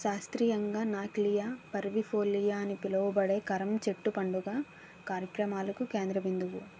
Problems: constant background noise